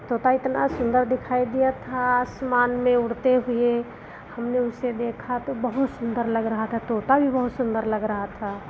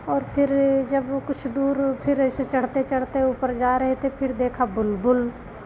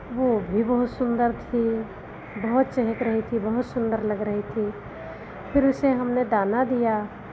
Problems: none marked